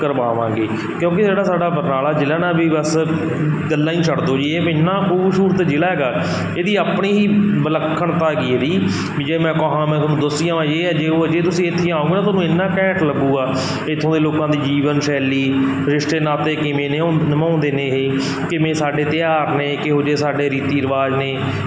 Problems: constant background noise